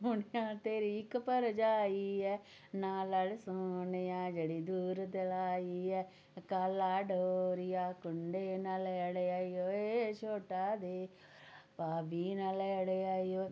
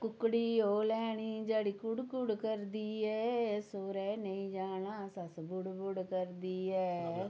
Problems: none marked